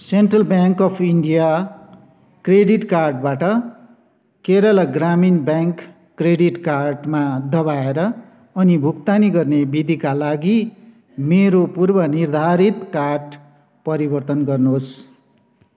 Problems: none marked